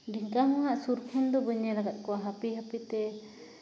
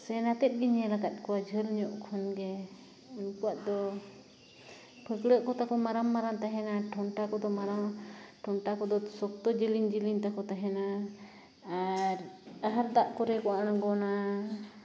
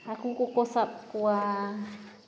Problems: constant background noise